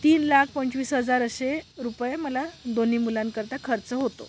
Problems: background sounds at intervals